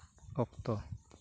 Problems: none marked